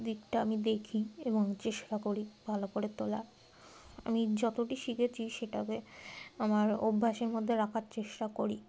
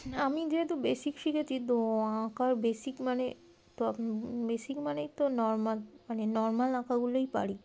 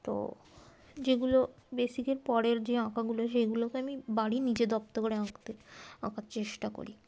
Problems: none marked